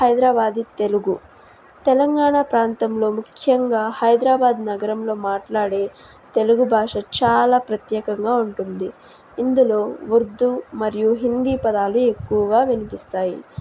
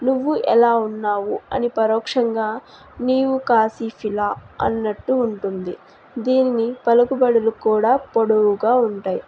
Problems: constant background noise